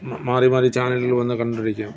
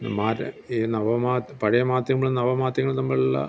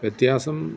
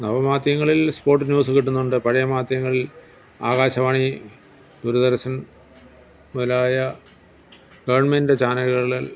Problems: background sounds at intervals